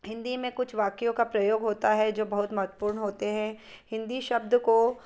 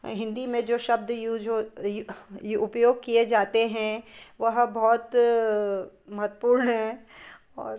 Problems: background sounds at intervals